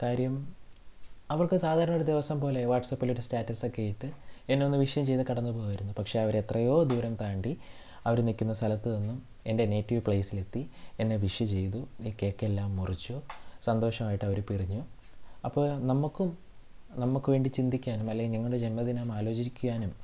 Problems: low volume